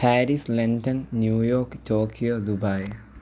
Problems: low volume